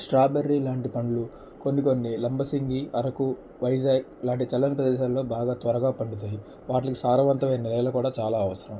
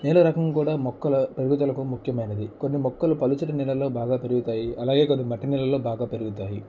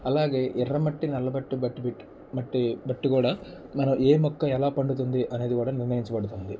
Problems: low volume